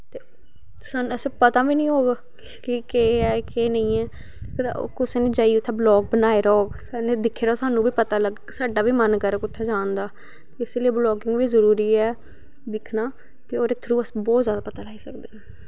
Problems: none marked